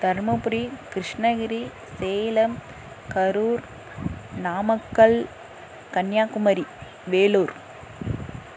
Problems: background sounds at intervals